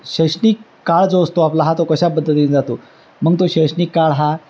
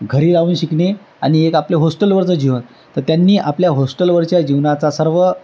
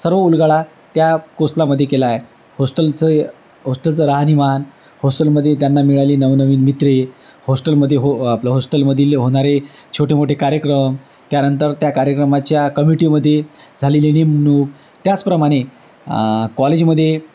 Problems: constant background noise